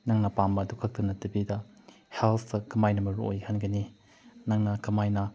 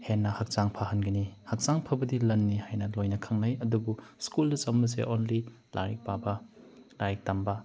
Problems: background sounds at intervals